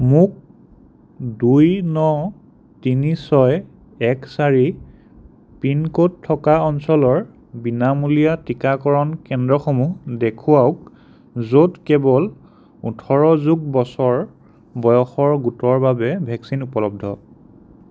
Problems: none marked